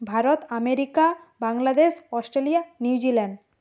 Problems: constant background noise